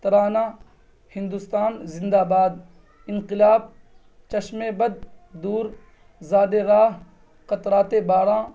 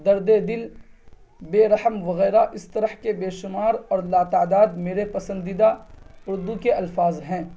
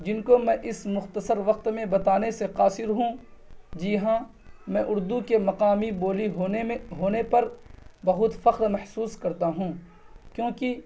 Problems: none marked